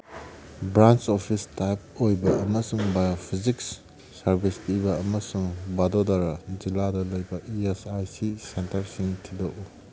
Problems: background sounds at intervals